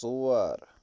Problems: constant background noise, low volume